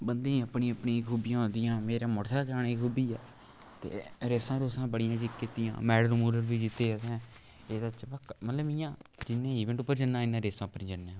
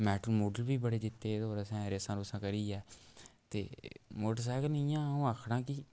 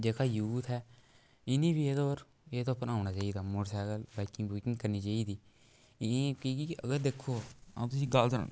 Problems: background sounds at intervals